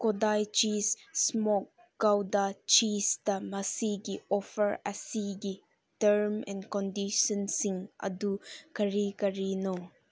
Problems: none marked